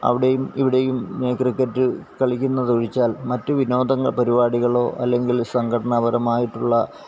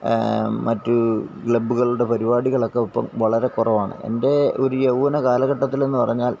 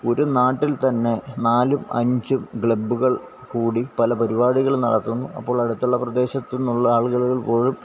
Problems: none marked